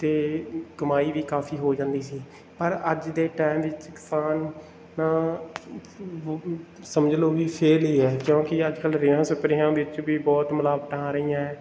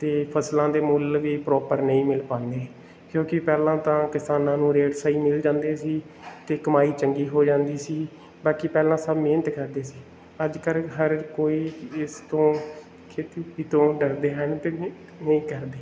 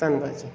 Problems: background sounds at intervals